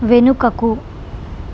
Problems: constant background noise